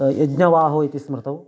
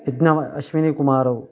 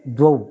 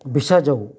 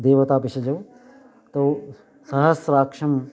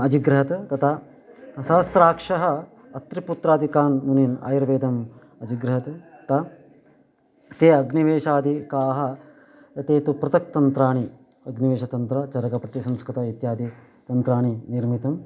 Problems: none marked